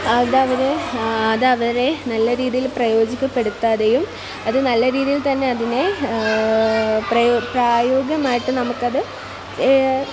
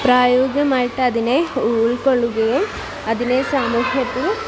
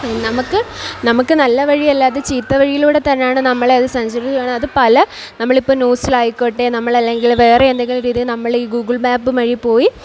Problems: constant background noise, background conversations at intervals